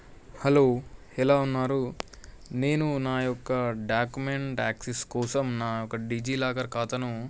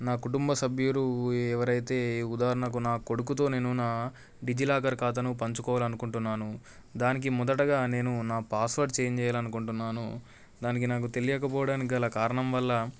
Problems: background sounds at intervals